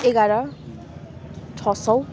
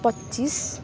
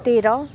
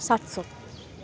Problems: none marked